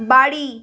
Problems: constant background noise